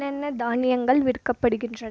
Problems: low volume